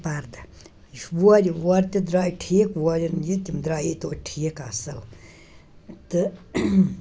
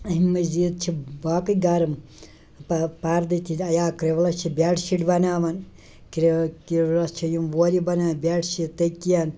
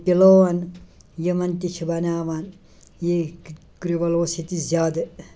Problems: background sounds at intervals, background conversations at intervals